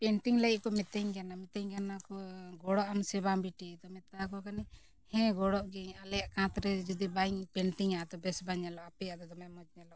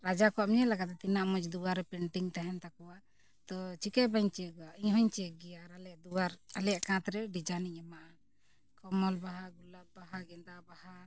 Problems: background sounds at intervals